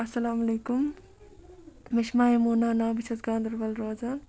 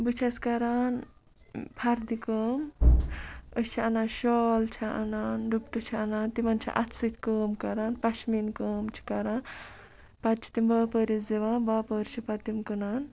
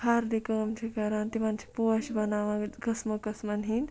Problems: background sounds at intervals